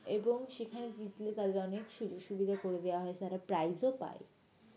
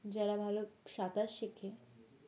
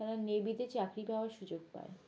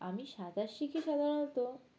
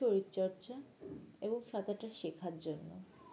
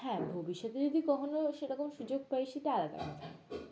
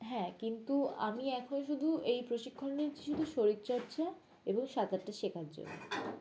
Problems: constant background noise, background conversations at intervals